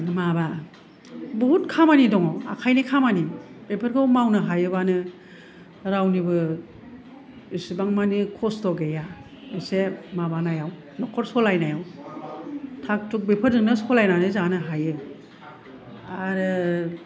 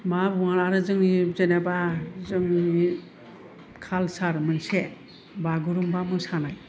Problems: none marked